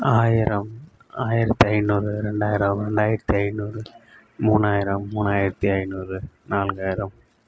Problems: none marked